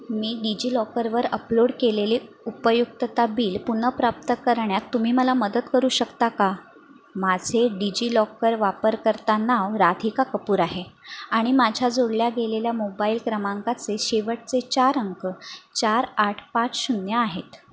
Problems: none marked